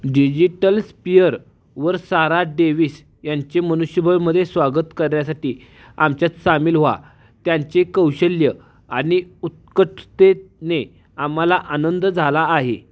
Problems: background sounds at intervals